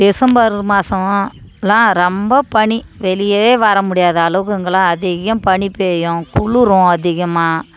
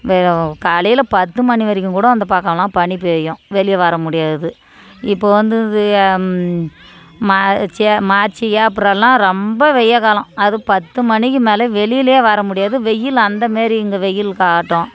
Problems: background conversations at intervals